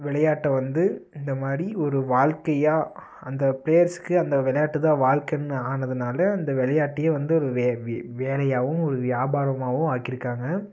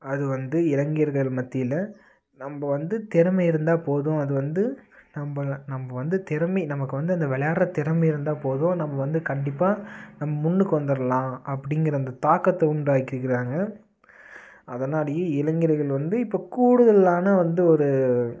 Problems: constant background noise